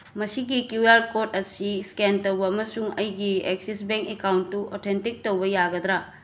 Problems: none marked